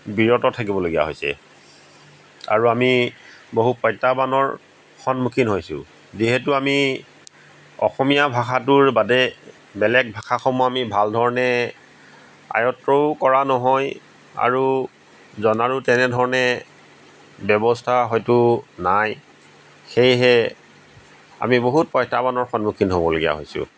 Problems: background sounds at intervals